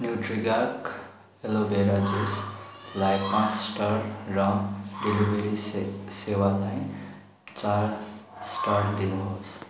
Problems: none marked